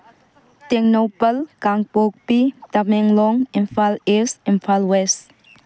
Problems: background conversations at intervals